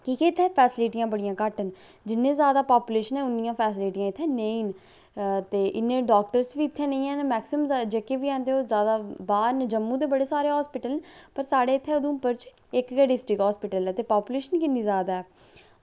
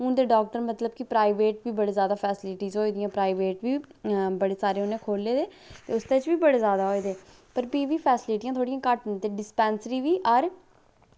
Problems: low volume